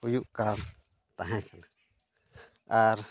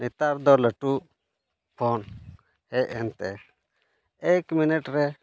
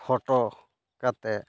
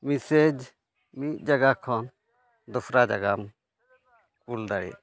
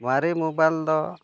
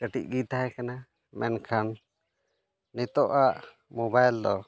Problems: none marked